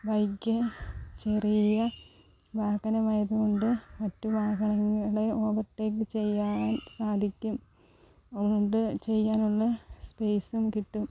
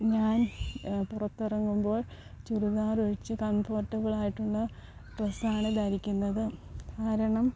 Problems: low volume